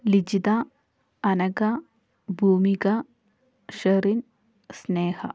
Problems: none marked